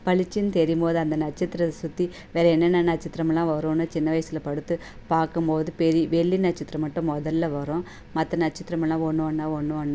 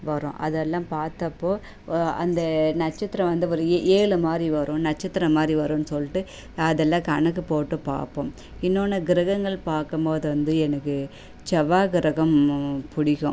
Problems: none marked